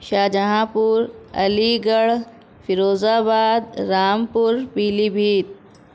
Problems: none marked